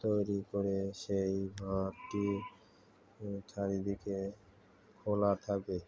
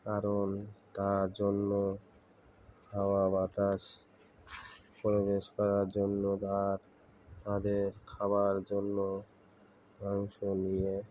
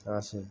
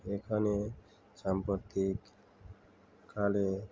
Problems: constant background noise, continuous background conversations